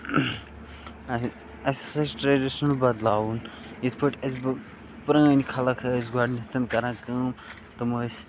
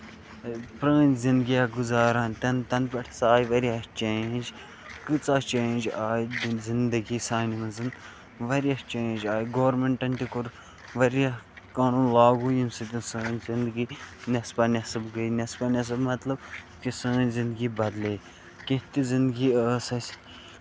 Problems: constant background noise, low volume